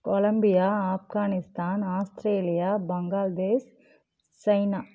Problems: constant background noise